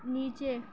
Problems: constant background noise